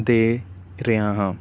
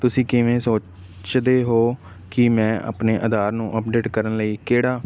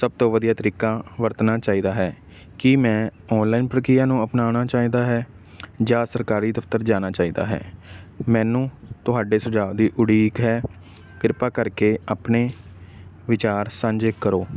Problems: none marked